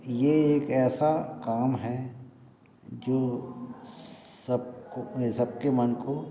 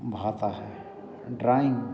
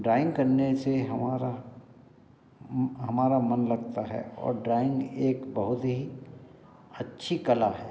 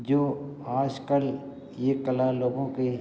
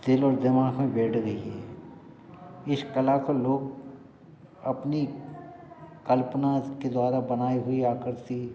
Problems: constant background noise, continuous background conversations